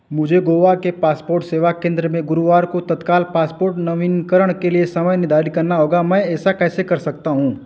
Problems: none marked